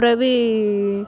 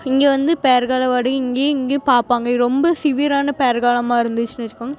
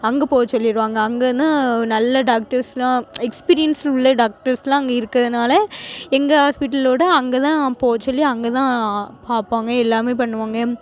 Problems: constant background noise